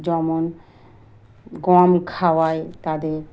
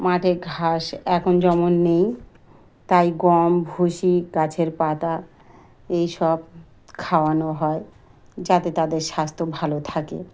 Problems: background sounds at intervals